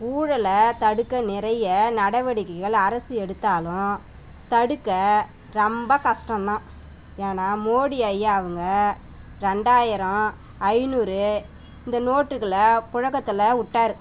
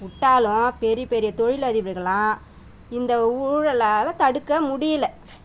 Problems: background sounds at intervals